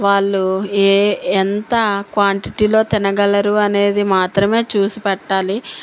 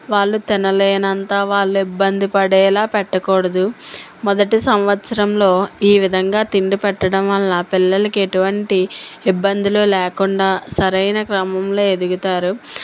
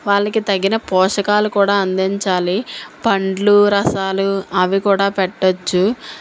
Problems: none marked